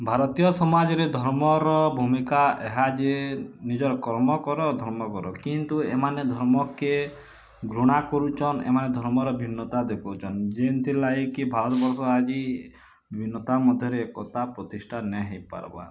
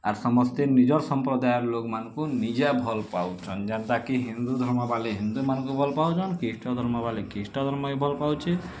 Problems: background sounds at intervals